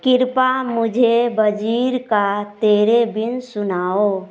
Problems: background sounds at intervals